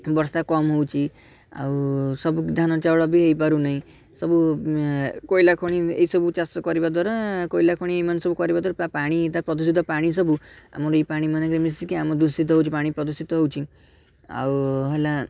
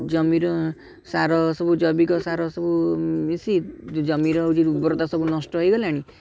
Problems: background sounds at intervals, continuous background conversations